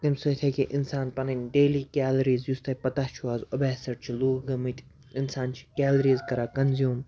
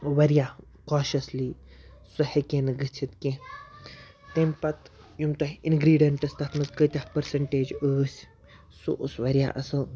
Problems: background sounds at intervals